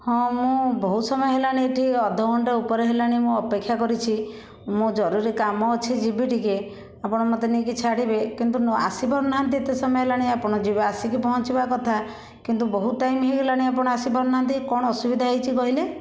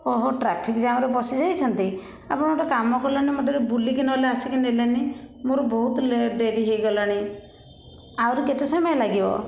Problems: constant background noise, continuous background conversations